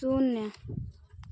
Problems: none marked